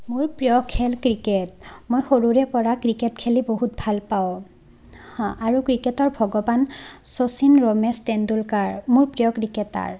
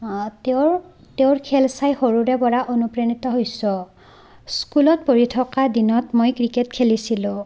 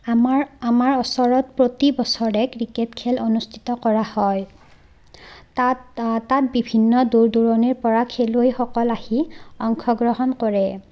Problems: none marked